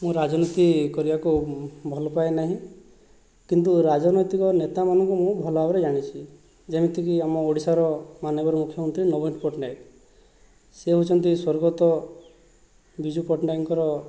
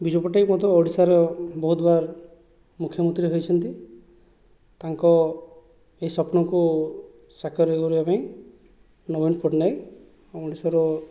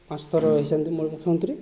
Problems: background conversations at intervals